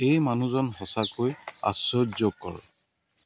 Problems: background sounds at intervals